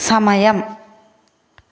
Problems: constant background noise